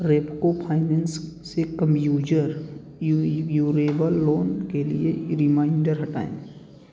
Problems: constant background noise